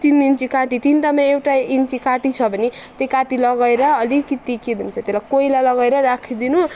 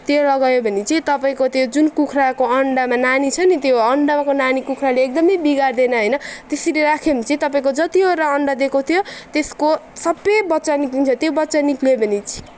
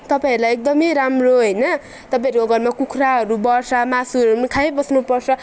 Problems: none marked